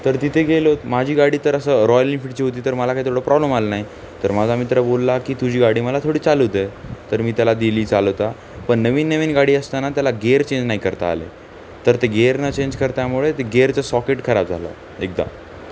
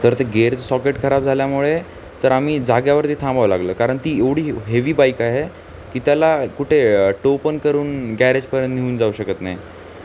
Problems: constant background noise